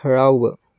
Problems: none marked